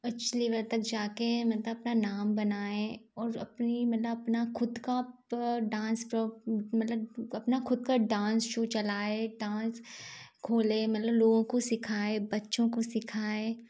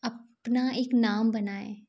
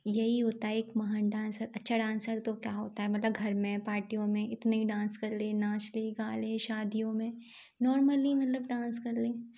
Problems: background sounds at intervals